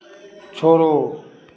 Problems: constant background noise, continuous background conversations